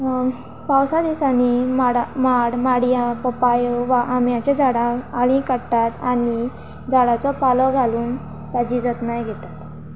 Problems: constant background noise